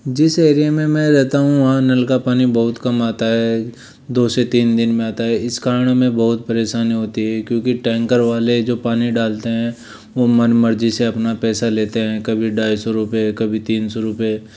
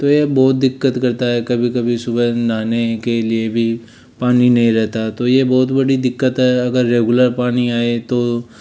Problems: none marked